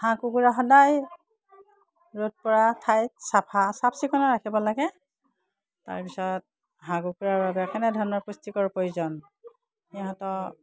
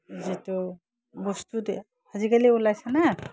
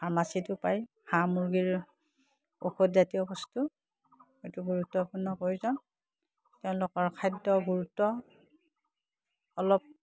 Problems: low volume